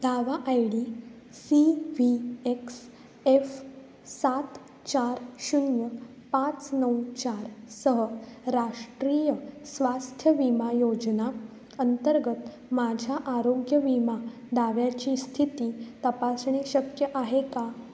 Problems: background sounds at intervals